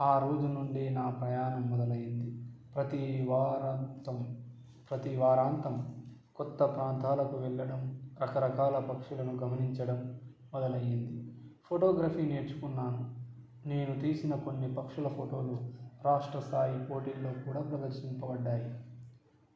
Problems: low volume